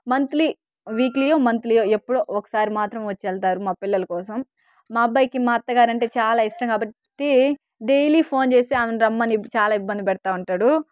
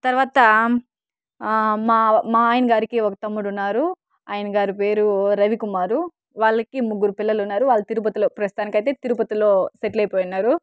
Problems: none marked